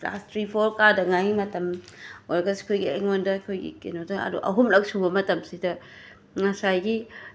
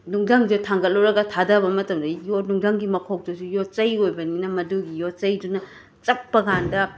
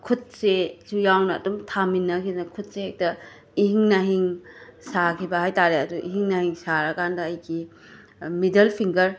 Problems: constant background noise